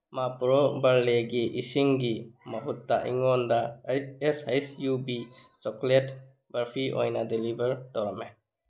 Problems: none marked